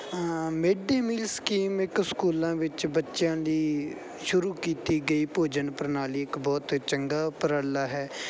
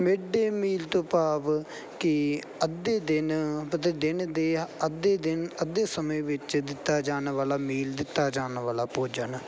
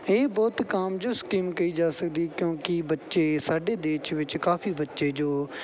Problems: none marked